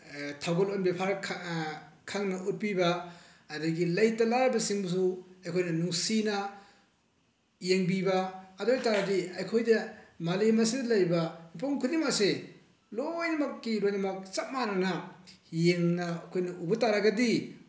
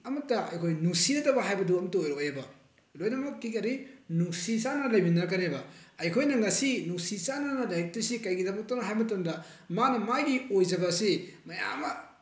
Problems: none marked